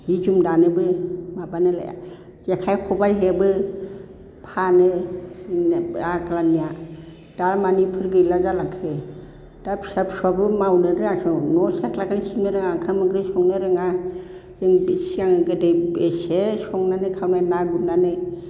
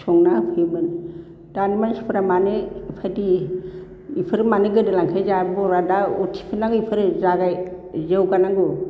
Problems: constant background noise